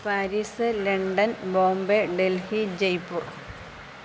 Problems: constant background noise